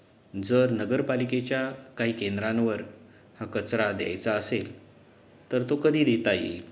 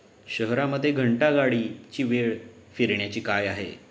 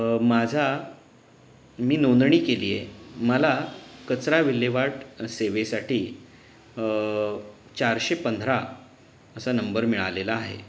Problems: background sounds at intervals